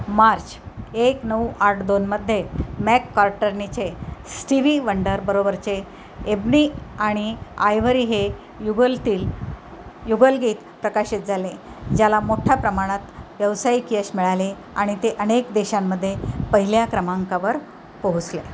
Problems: constant background noise